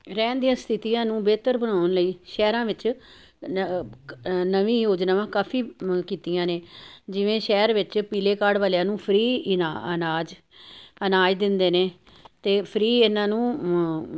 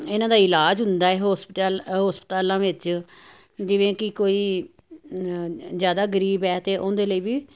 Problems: none marked